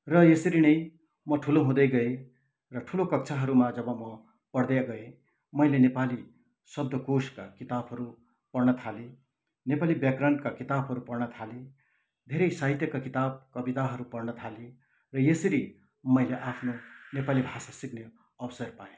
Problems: none marked